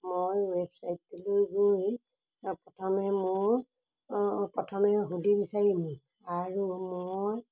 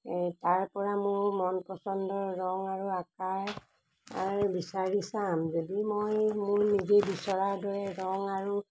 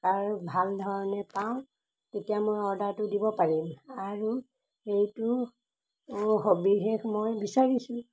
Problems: background sounds at intervals